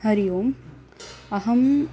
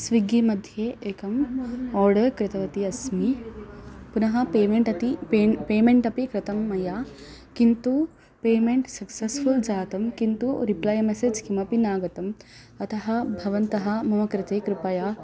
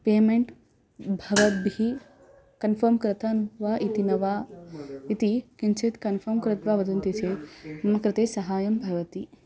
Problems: background sounds at intervals